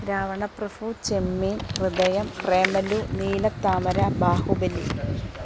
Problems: none marked